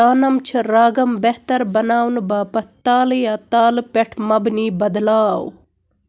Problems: constant background noise